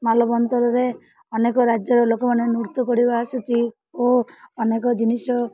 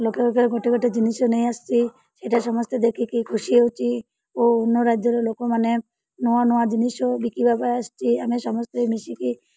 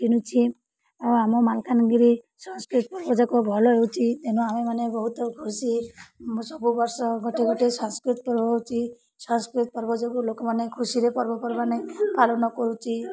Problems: none marked